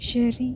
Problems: low volume